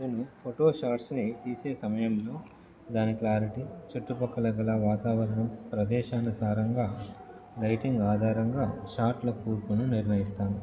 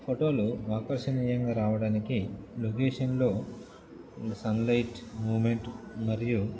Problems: background conversations at intervals